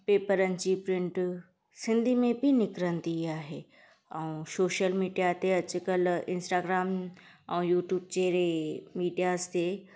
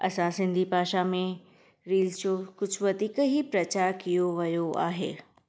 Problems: background sounds at intervals